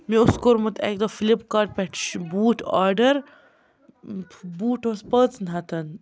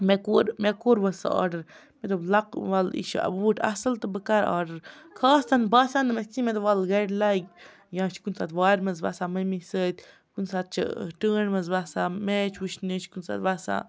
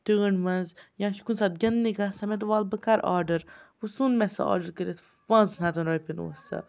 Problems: background sounds at intervals